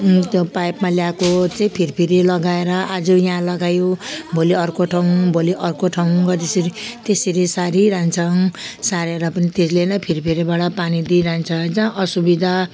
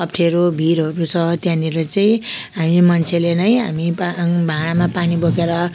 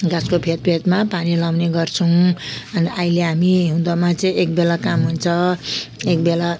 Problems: constant background noise